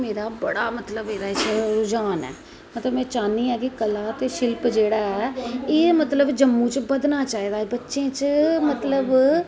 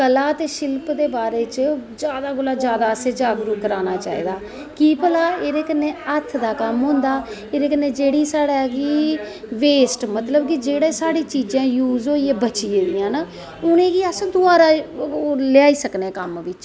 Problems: echo